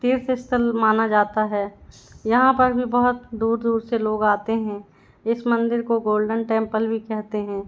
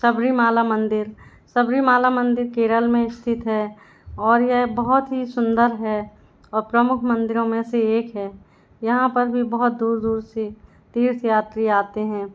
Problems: background sounds at intervals